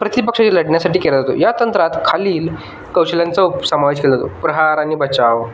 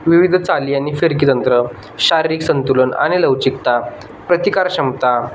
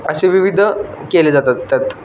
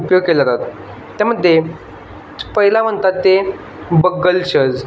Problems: constant background noise, background conversations at intervals